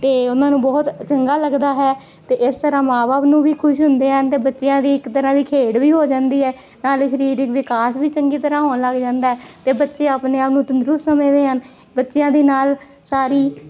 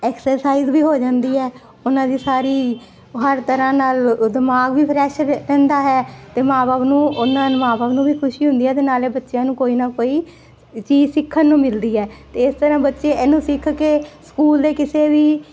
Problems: constant background noise